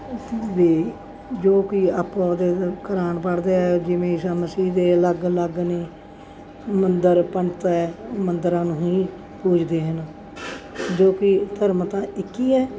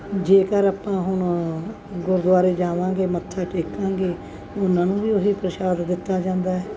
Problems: none marked